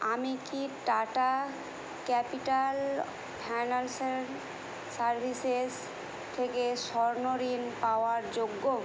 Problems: constant background noise